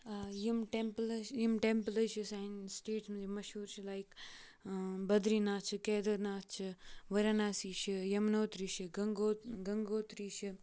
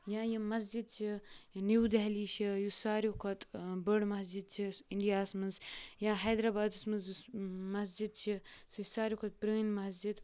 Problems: background sounds at intervals